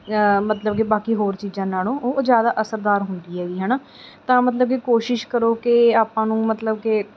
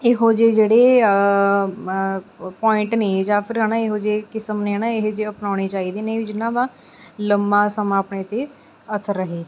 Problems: background sounds at intervals